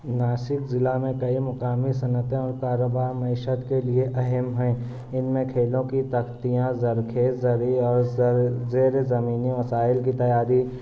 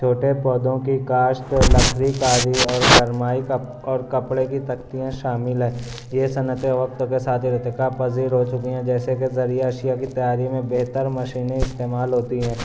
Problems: constant background noise